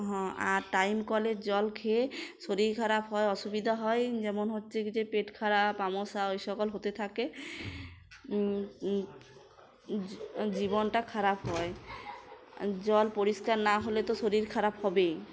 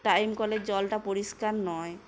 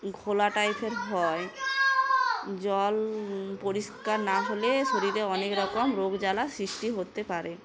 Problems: constant background noise